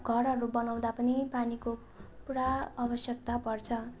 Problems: constant background noise